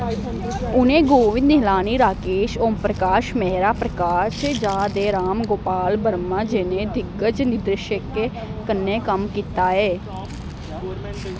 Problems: constant background noise